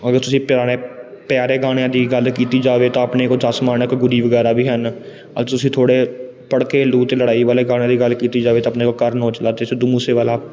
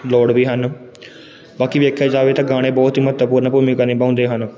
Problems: background sounds at intervals